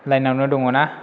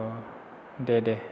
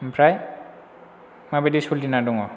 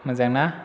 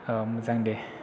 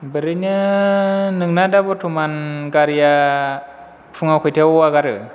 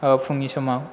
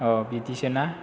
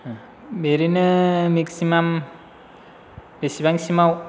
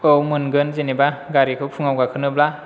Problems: none marked